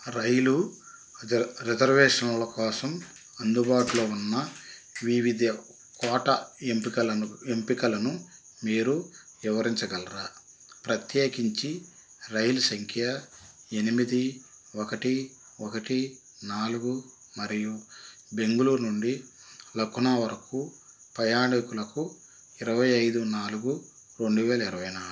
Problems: constant background noise